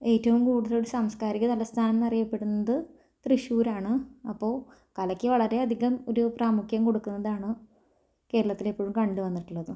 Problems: low volume